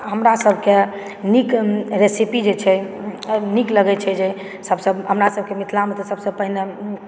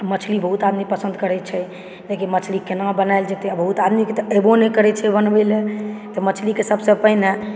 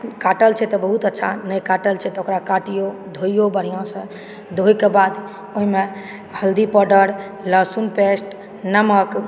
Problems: background sounds at intervals